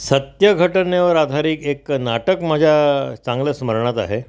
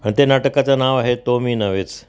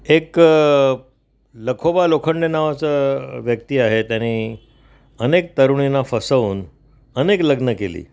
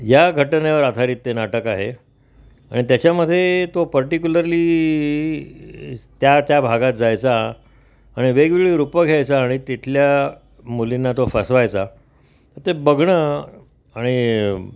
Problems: background sounds at intervals